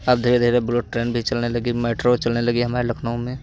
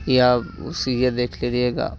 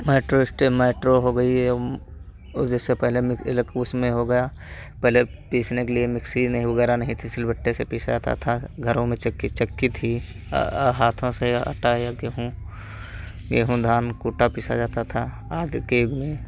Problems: constant background noise